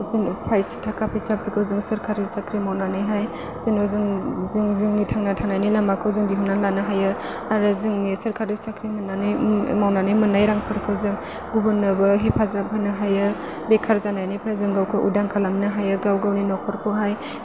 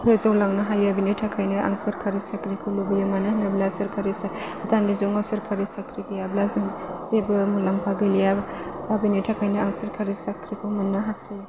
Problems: constant background noise